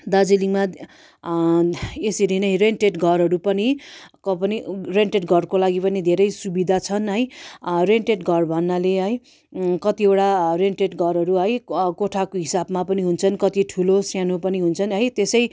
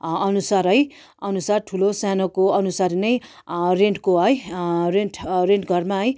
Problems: none marked